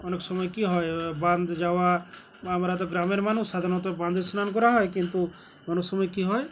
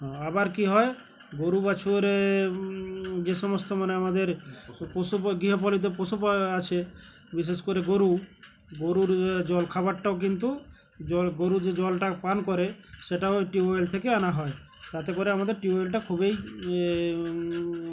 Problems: none marked